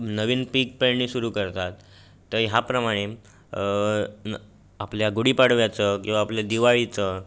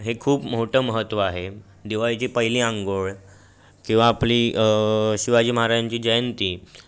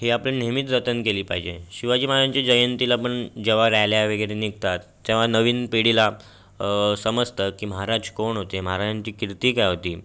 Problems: constant background noise, background conversations at intervals